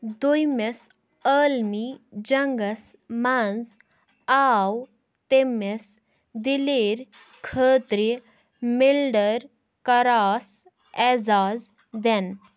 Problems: none marked